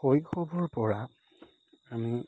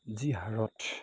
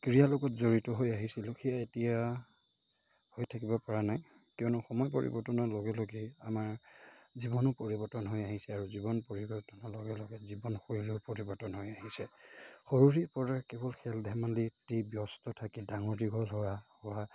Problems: constant background noise